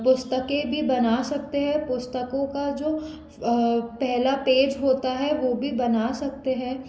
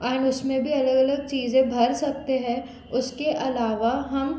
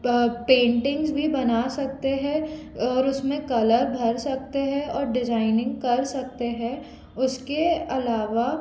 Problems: constant background noise